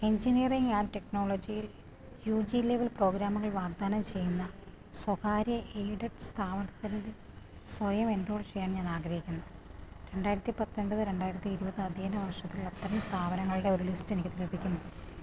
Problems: constant background noise